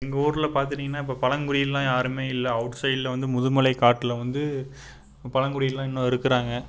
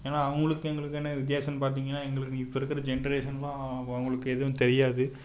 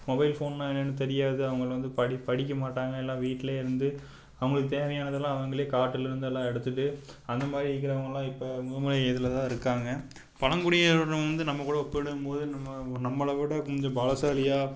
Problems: background sounds at intervals